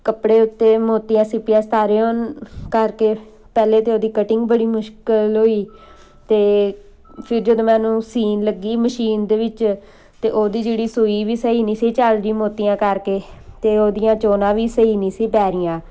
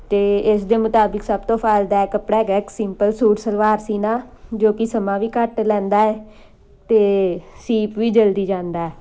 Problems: background sounds at intervals